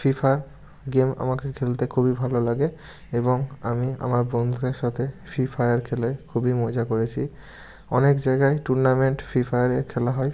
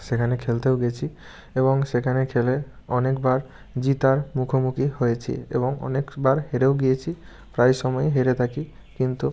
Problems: constant background noise